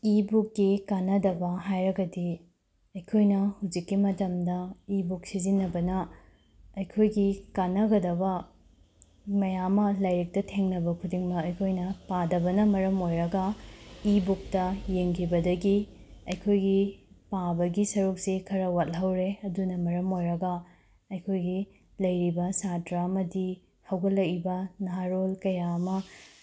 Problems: background sounds at intervals